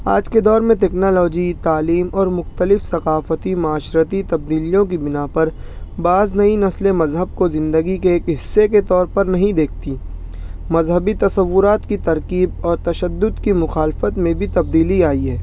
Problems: background sounds at intervals